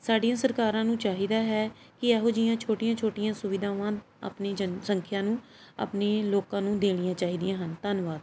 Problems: background sounds at intervals